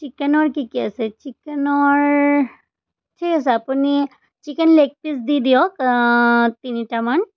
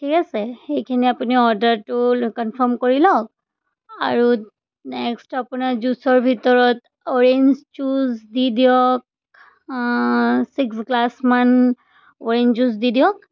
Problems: background sounds at intervals